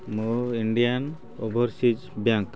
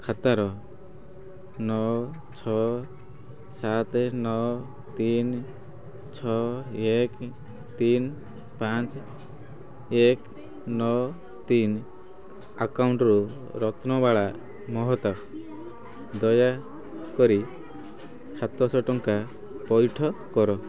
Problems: constant background noise